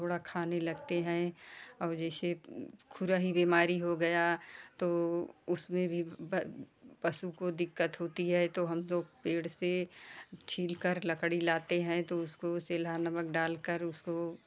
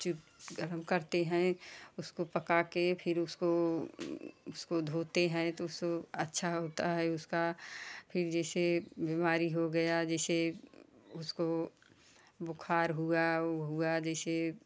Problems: constant background noise